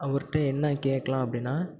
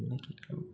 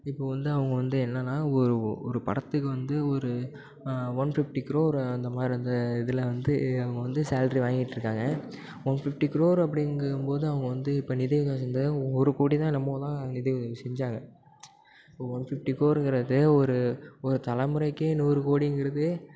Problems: background sounds at intervals